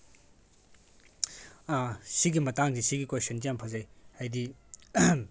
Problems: background conversations at intervals